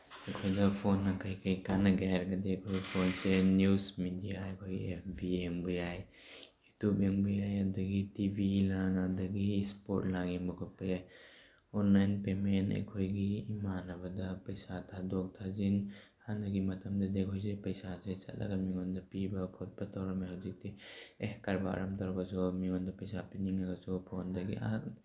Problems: background sounds at intervals